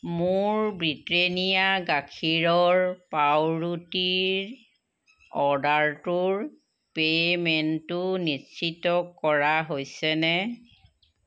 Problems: constant background noise